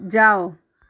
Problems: none marked